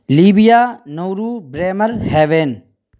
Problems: none marked